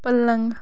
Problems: constant background noise